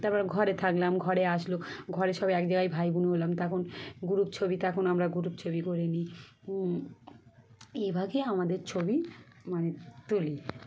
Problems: constant background noise, background conversations at intervals